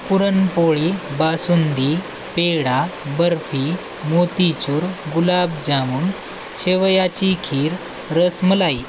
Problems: constant background noise